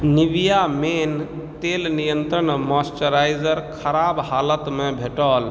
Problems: none marked